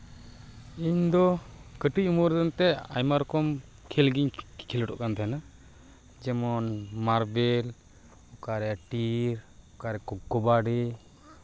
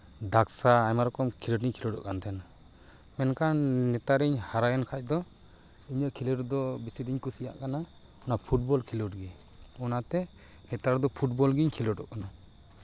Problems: background sounds at intervals, background conversations at intervals